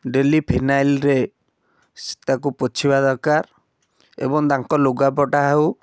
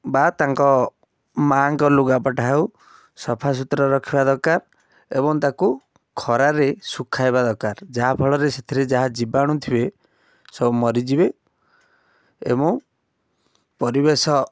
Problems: none marked